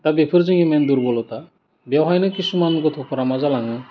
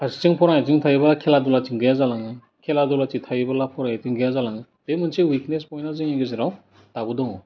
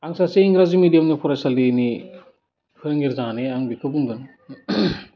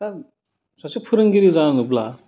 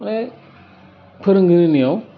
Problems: constant background noise